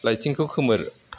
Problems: constant background noise